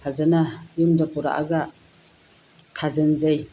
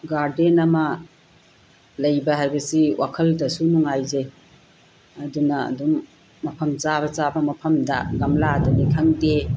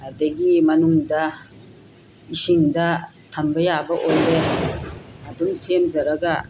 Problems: constant background noise